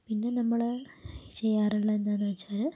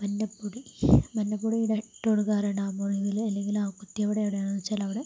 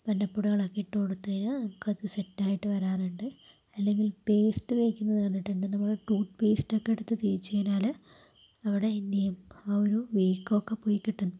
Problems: constant background noise, low volume